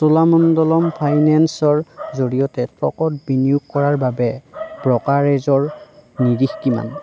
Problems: constant background noise